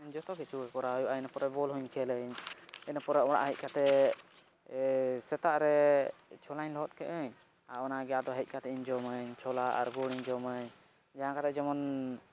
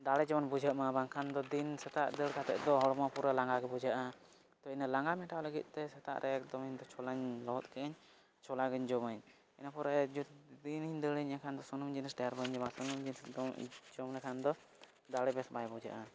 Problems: low volume